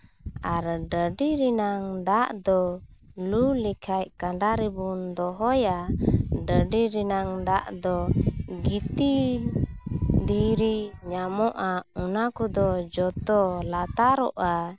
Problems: none marked